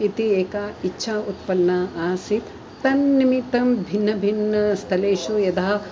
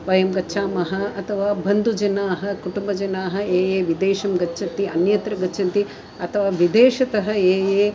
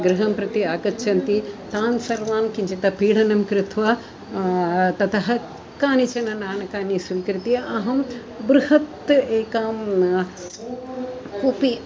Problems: none marked